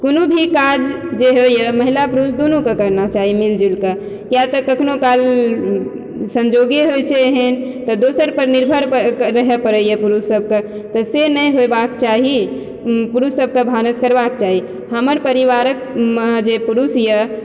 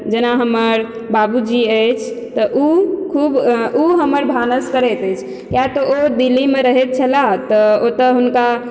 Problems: background sounds at intervals